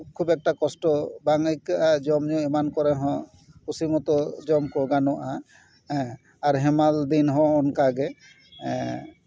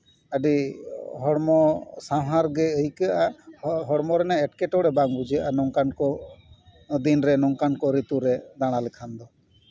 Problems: background conversations at intervals